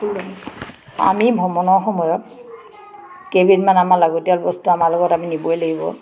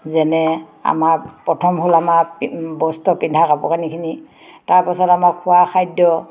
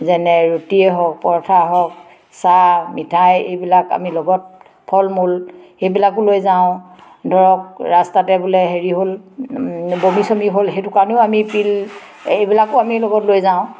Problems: background sounds at intervals, background conversations at intervals